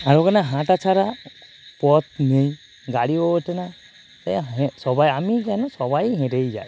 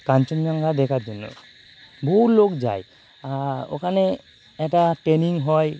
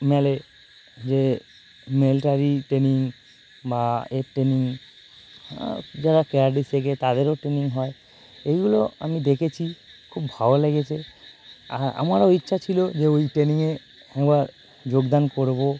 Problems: none marked